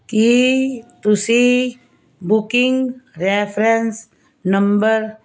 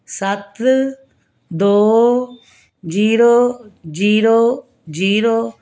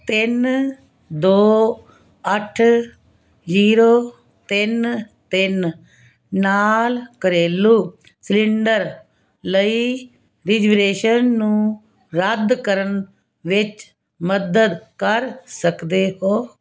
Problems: none marked